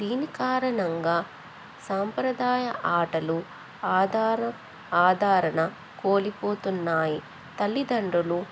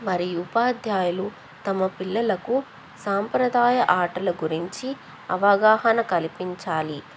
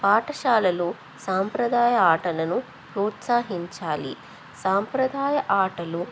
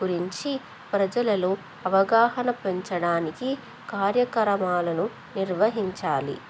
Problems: constant background noise